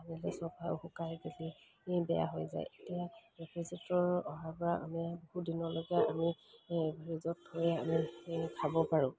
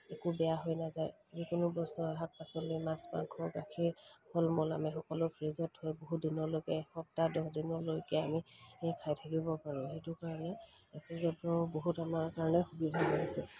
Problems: background sounds at intervals